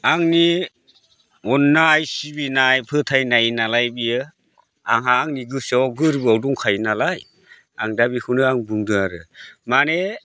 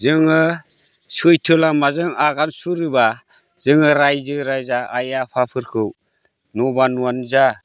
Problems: none marked